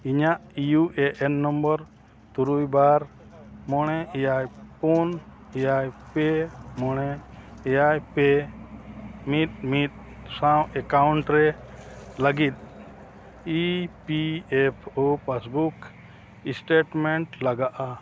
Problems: none marked